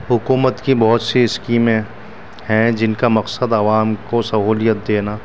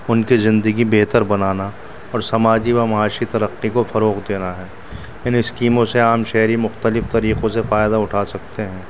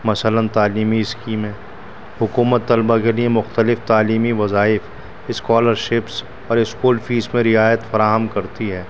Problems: constant background noise